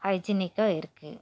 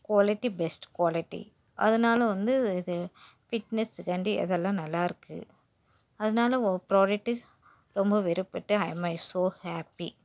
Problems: background sounds at intervals